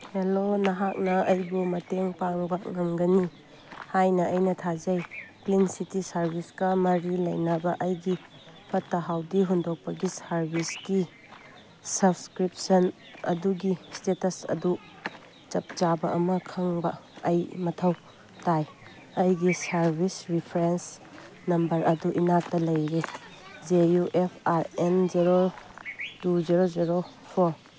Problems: background sounds at intervals